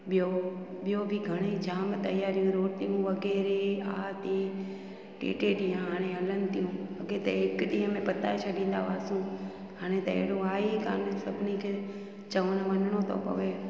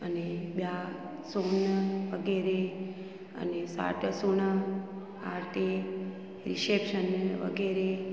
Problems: constant background noise, echo